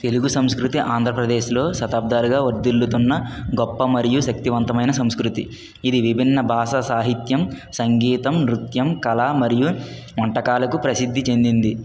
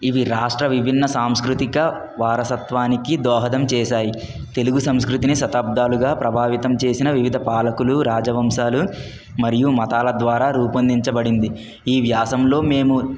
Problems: none marked